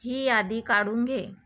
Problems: none marked